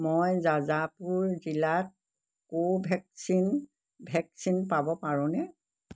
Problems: background sounds at intervals